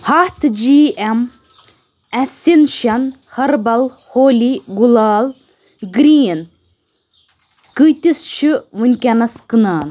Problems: constant background noise